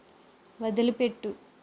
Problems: constant background noise